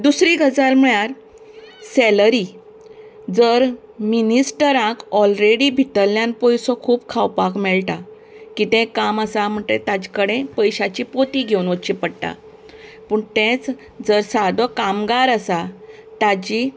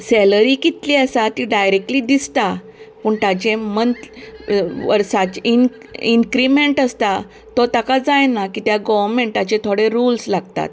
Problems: constant background noise